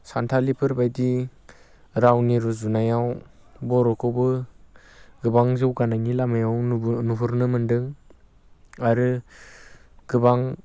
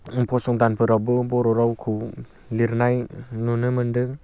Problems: constant background noise